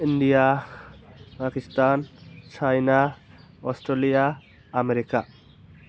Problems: constant background noise